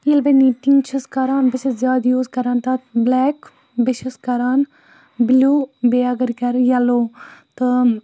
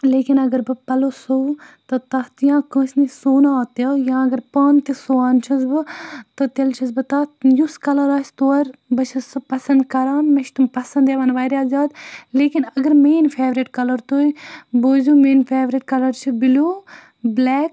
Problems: none marked